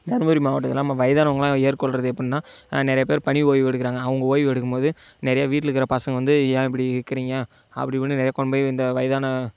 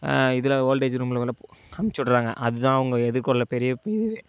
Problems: background sounds at intervals